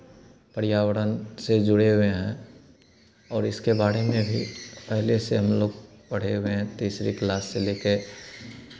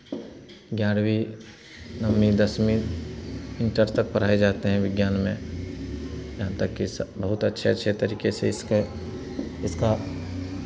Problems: constant background noise